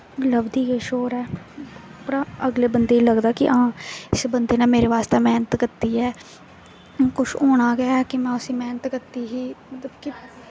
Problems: constant background noise